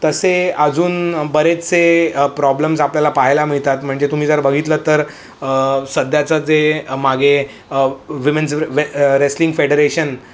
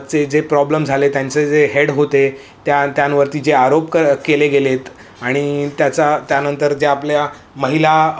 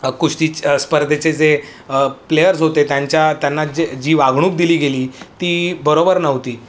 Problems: constant background noise